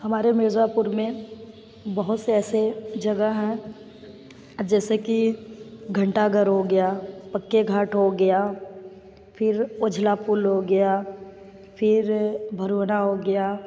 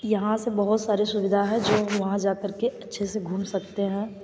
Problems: constant background noise